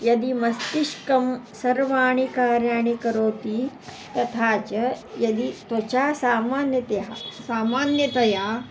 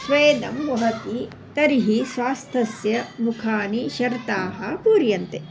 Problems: constant background noise